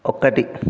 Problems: none marked